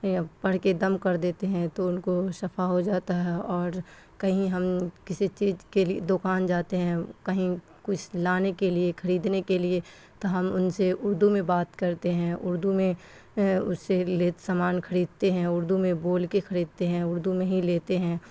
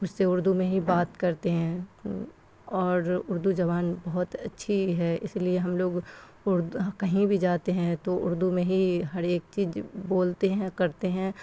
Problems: constant background noise